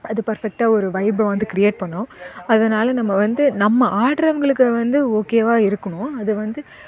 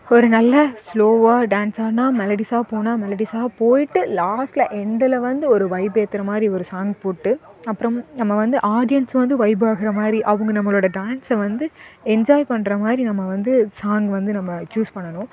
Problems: constant background noise, continuous background conversations